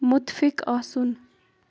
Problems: constant background noise